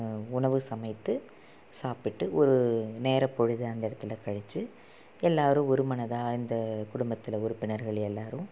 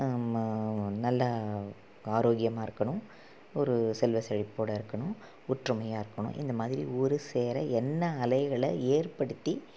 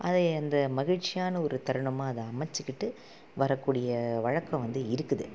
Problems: low volume